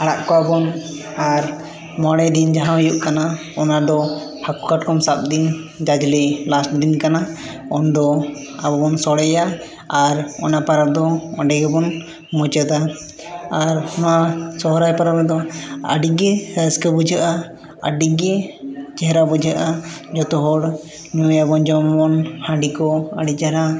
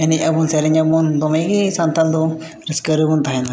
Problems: continuous background conversations